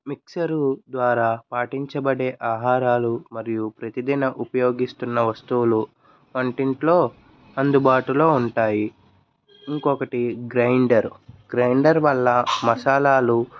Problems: background sounds at intervals